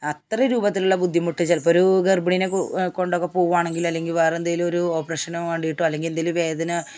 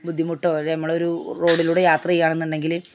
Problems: background sounds at intervals